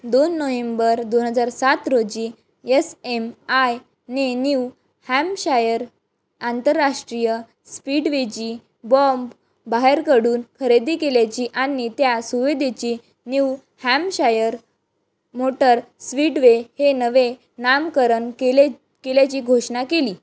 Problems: background conversations at intervals